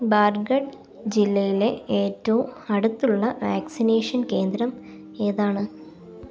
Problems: none marked